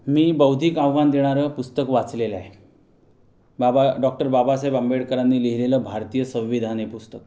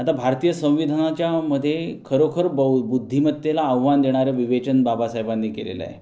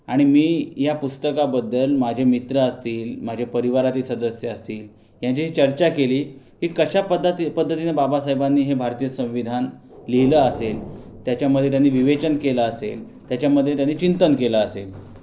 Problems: constant background noise